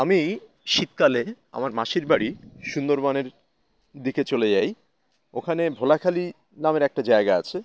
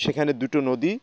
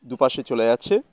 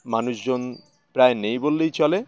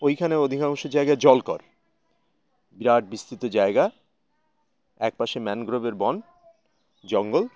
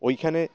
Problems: none marked